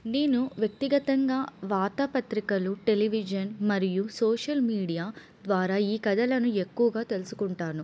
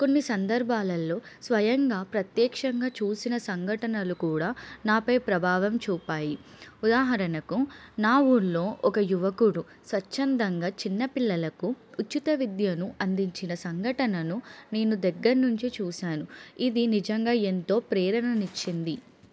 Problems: none marked